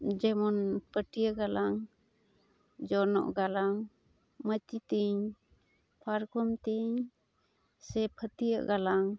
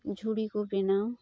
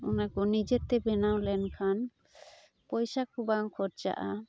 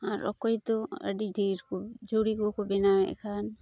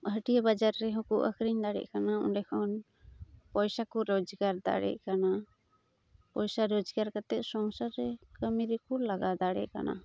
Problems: background sounds at intervals